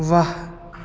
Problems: constant background noise